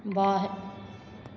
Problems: none marked